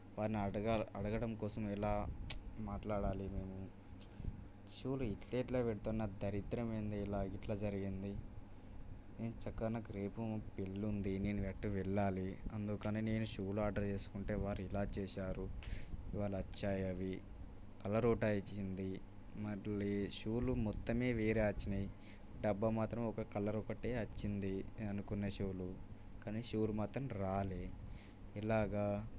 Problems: background sounds at intervals, low volume